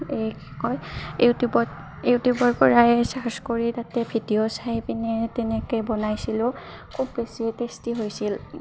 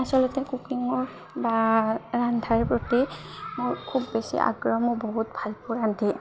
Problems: constant background noise, background conversations at intervals